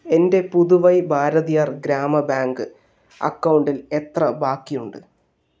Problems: none marked